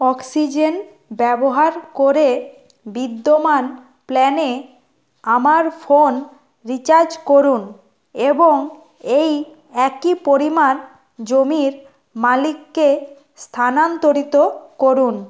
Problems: constant background noise